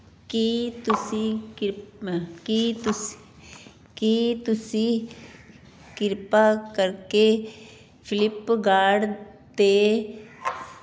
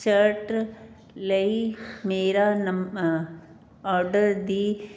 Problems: background sounds at intervals